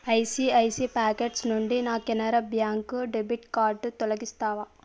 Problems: background sounds at intervals